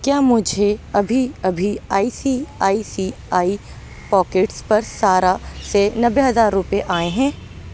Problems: none marked